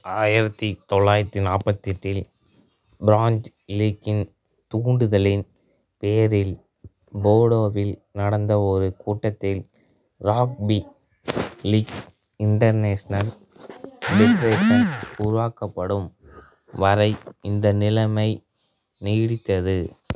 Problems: background sounds at intervals